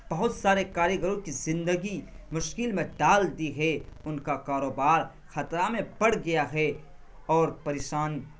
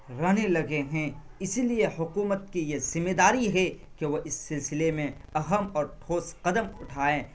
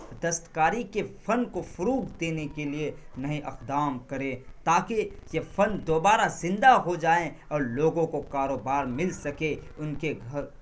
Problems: constant background noise